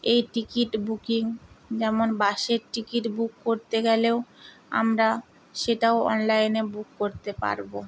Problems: constant background noise